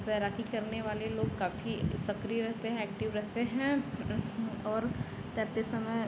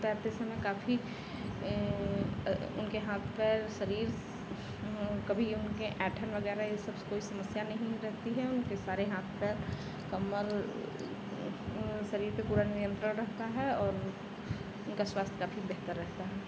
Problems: constant background noise